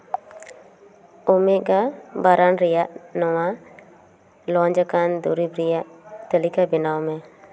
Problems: none marked